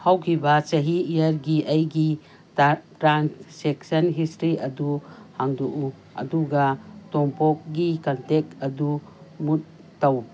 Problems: background sounds at intervals